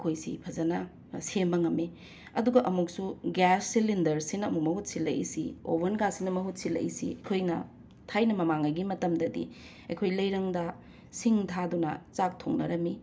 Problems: constant background noise